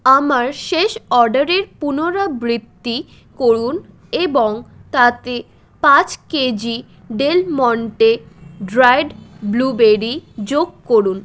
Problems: background sounds at intervals